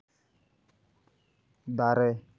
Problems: none marked